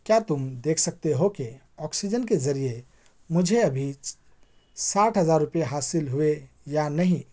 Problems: background sounds at intervals